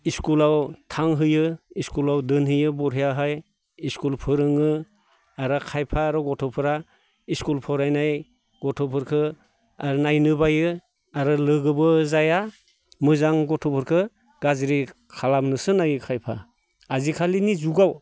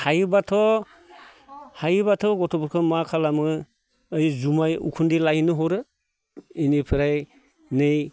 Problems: none marked